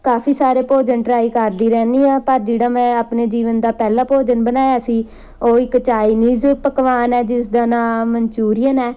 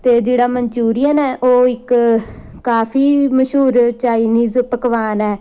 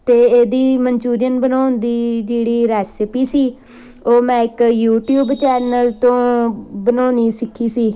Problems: none marked